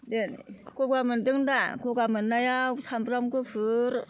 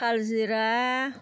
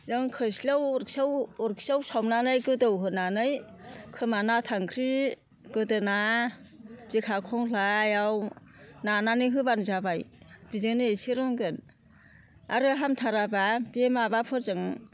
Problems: constant background noise